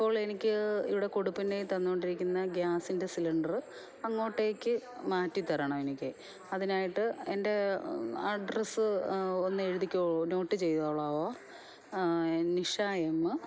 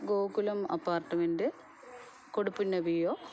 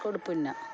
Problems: background sounds at intervals, background conversations at intervals, low volume